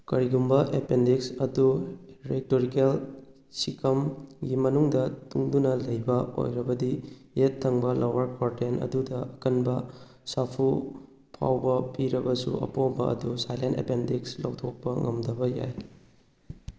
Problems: none marked